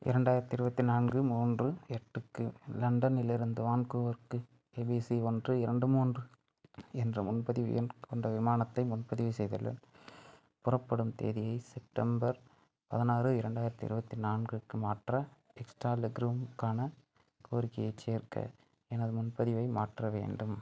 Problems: none marked